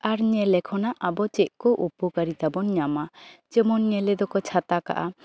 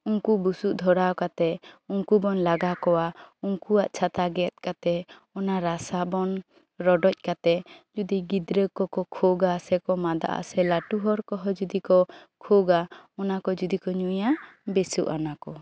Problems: background sounds at intervals, background conversations at intervals